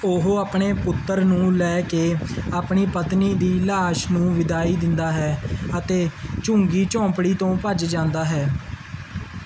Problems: none marked